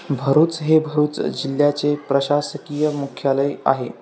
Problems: none marked